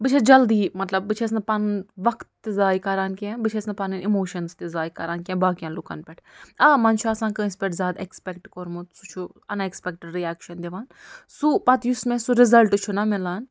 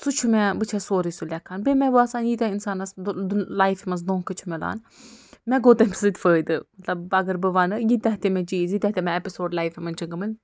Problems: none marked